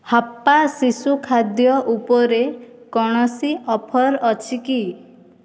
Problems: none marked